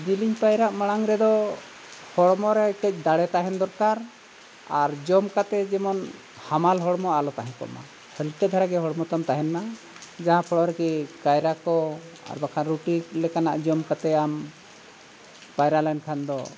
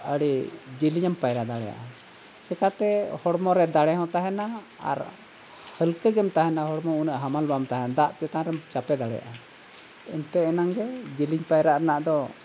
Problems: constant background noise